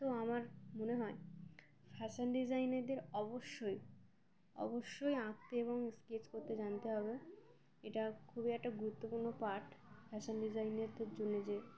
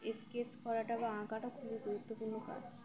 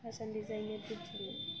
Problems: constant background noise, continuous background conversations